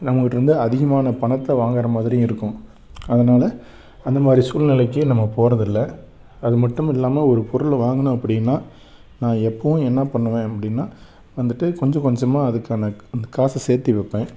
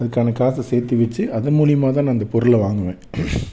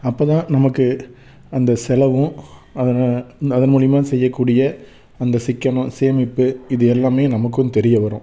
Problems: none marked